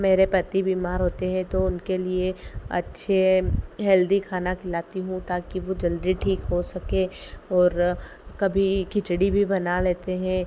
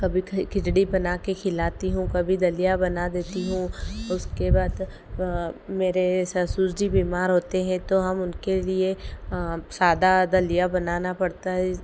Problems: none marked